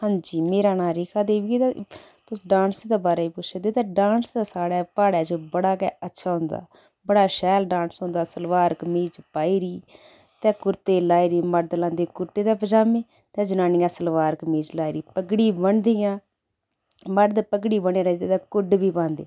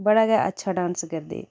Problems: background sounds at intervals